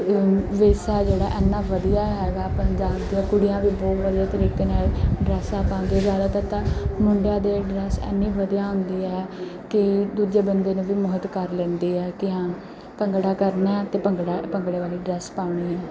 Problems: background sounds at intervals